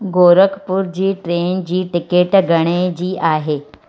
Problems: constant background noise